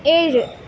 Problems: none marked